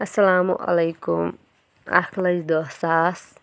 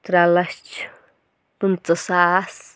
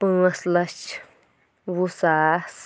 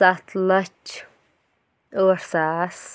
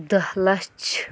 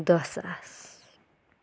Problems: none marked